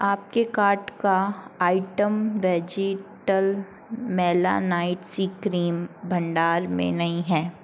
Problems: constant background noise